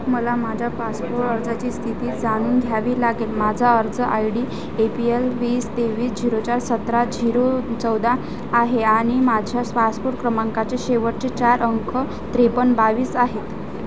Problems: none marked